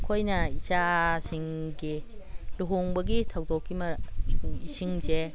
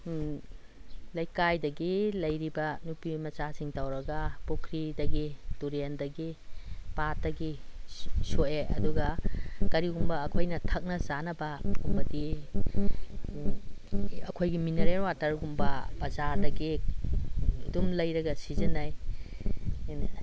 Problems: none marked